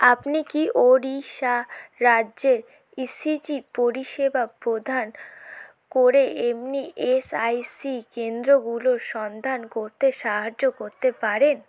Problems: background sounds at intervals